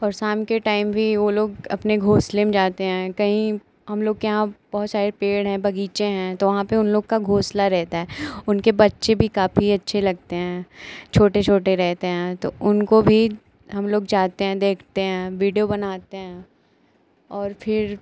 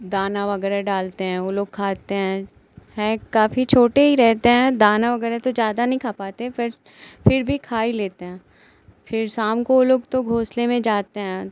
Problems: none marked